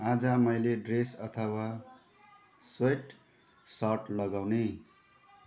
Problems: continuous background conversations